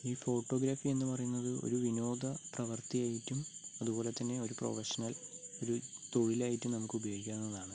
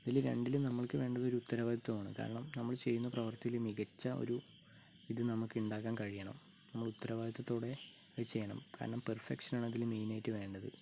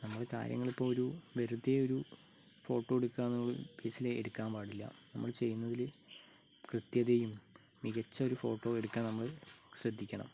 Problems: low volume